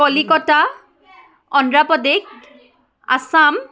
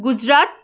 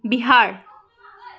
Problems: continuous background conversations